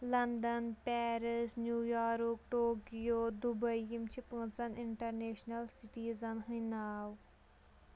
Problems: background sounds at intervals